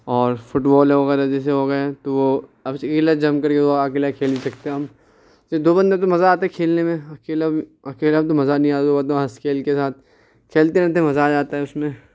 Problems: background sounds at intervals